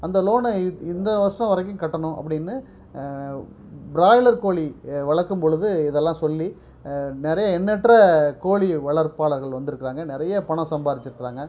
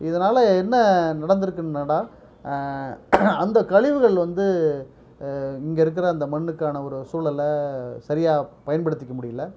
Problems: none marked